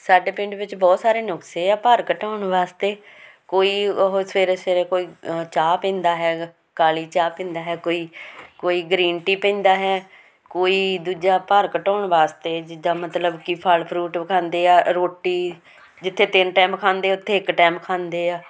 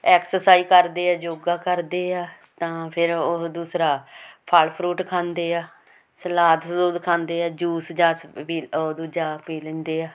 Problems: none marked